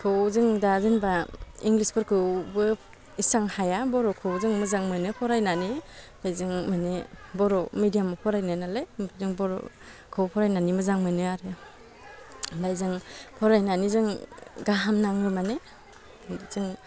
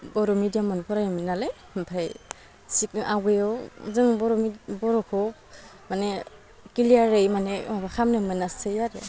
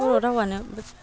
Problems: low volume